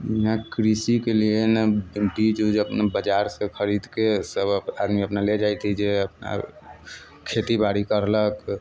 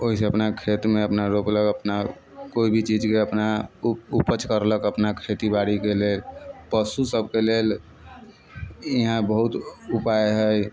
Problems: background sounds at intervals